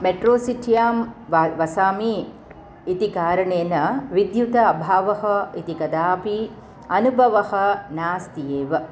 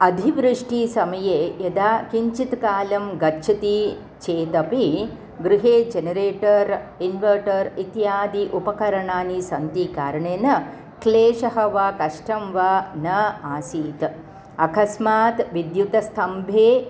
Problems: none marked